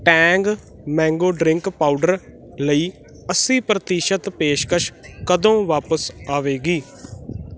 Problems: constant background noise